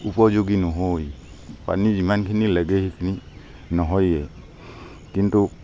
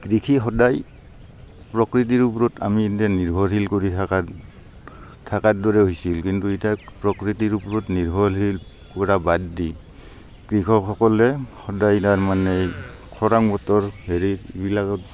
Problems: constant background noise, background conversations at intervals